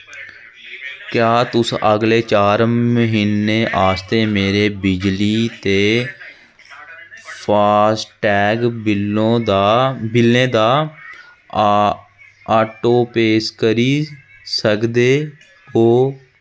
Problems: constant background noise